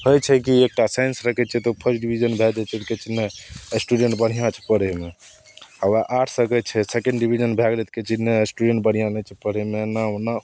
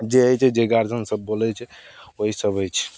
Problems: none marked